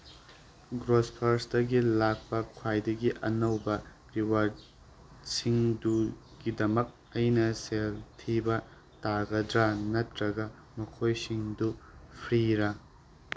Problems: constant background noise